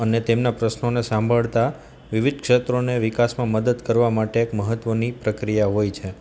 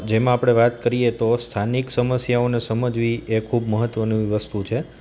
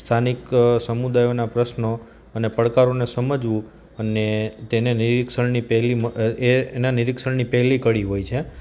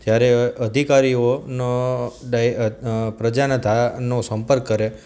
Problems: none marked